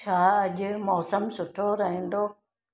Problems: echo